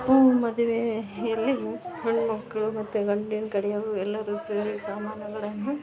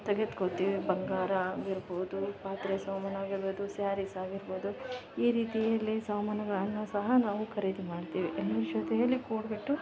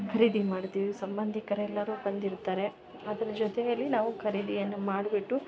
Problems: background sounds at intervals